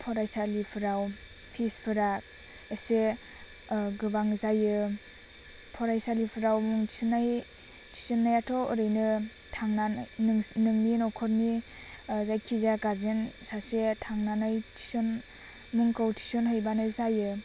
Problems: constant background noise